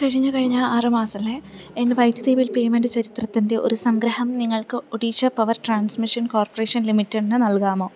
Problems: none marked